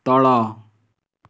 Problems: none marked